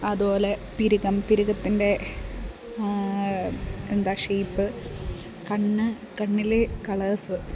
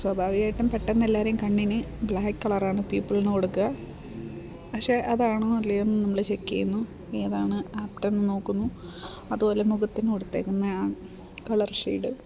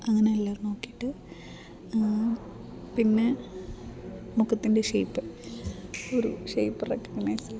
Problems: constant background noise, low volume